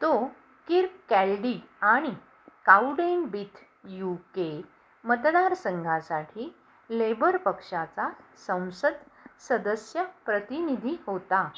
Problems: background sounds at intervals